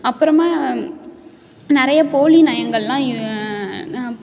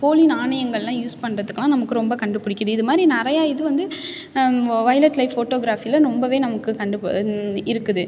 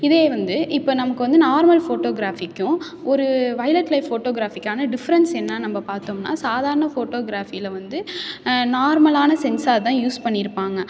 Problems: none marked